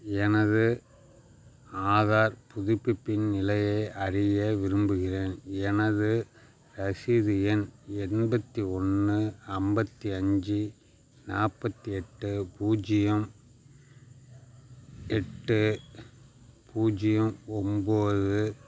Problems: background sounds at intervals